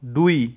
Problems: none marked